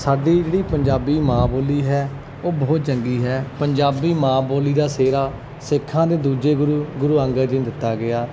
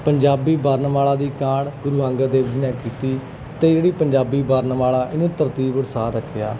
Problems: background sounds at intervals